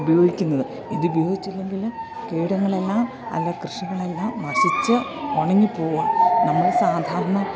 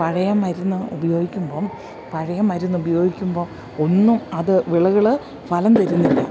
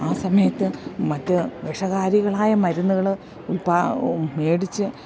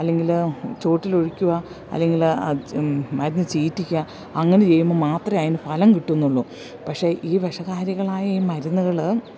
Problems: none marked